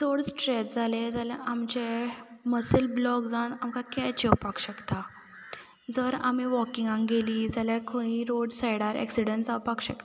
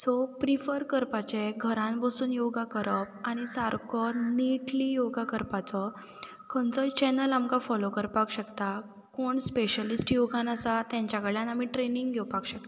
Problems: background sounds at intervals